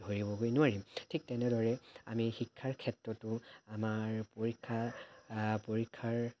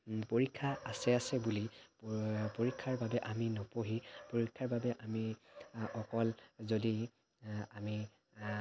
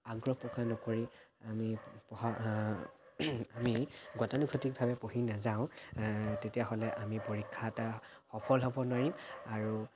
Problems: none marked